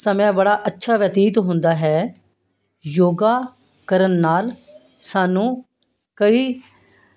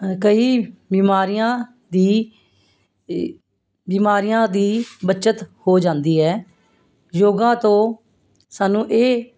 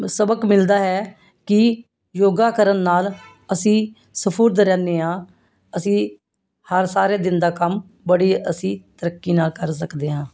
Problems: constant background noise